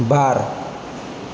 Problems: constant background noise